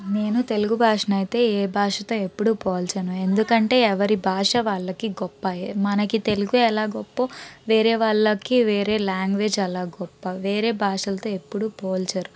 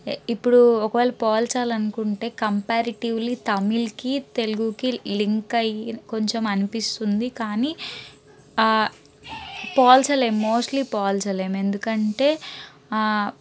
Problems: background sounds at intervals